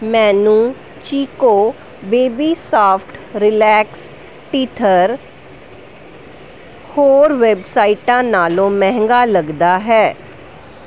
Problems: background sounds at intervals